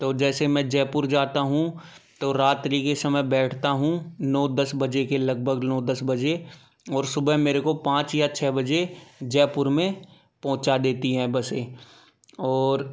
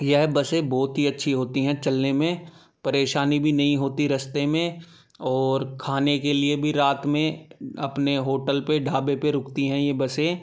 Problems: background sounds at intervals